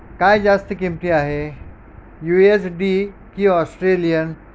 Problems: background sounds at intervals